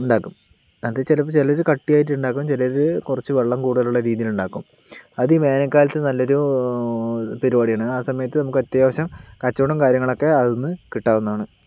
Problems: background sounds at intervals